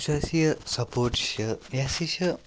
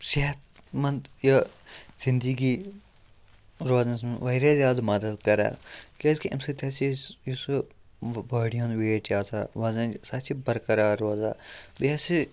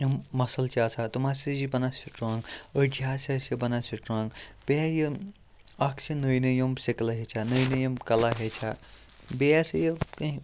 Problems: background sounds at intervals, low volume